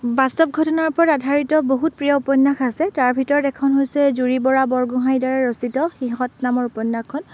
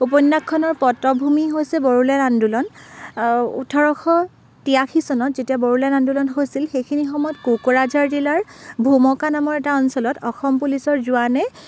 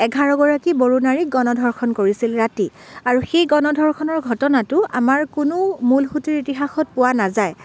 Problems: none marked